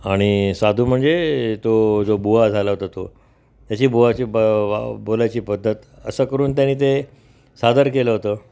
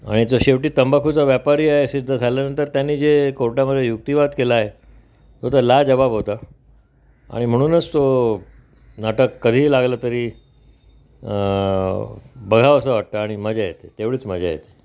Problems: background sounds at intervals